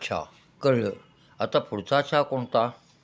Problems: constant background noise